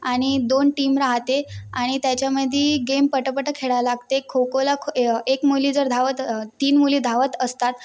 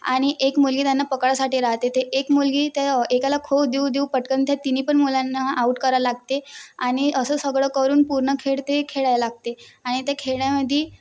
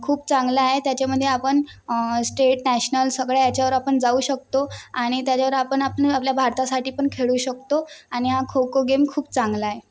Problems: constant background noise